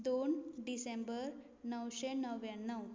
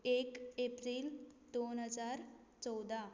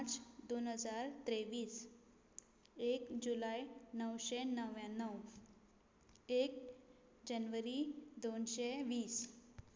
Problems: low volume